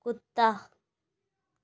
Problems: none marked